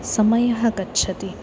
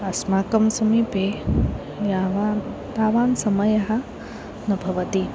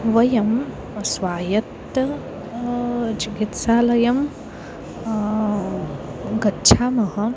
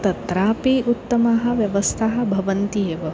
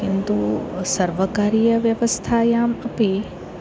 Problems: none marked